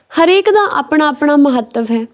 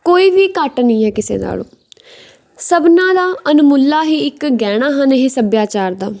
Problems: none marked